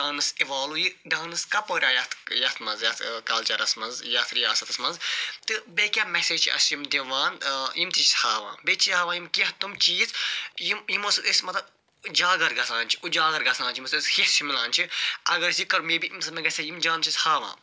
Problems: constant background noise